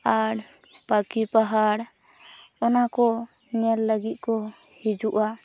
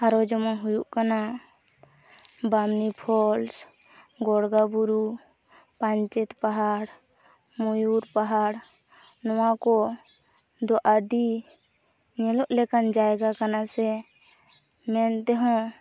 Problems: constant background noise